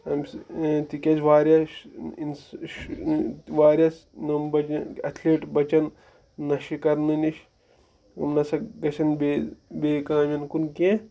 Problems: background conversations at intervals